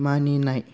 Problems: none marked